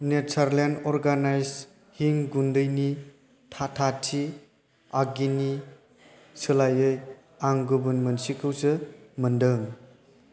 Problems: constant background noise